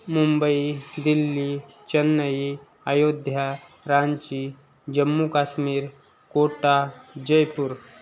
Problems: background sounds at intervals